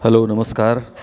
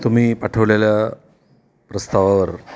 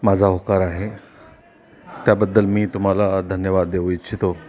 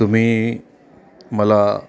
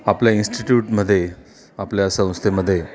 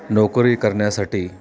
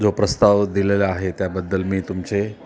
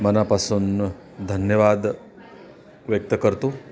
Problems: none marked